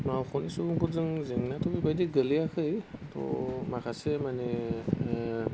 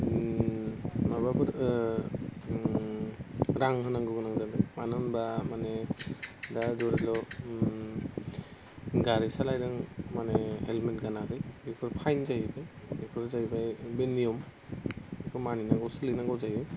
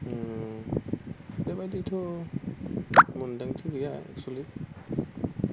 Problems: constant background noise